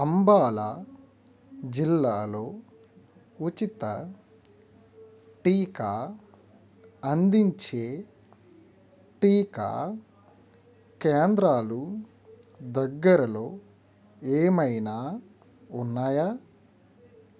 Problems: none marked